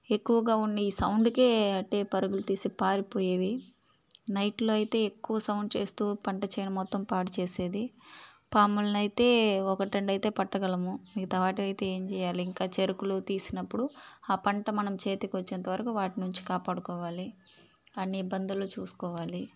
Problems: constant background noise, background conversations at intervals